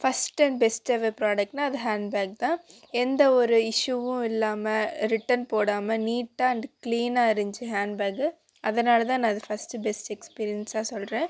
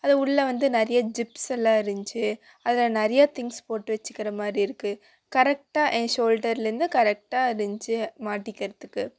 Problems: constant background noise